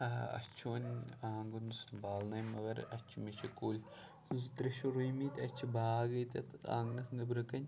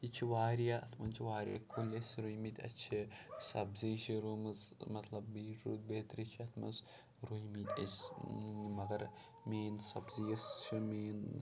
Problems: none marked